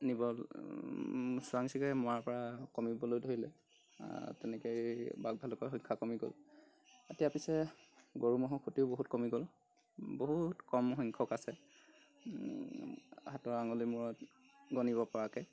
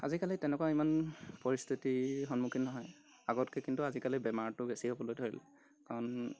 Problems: background sounds at intervals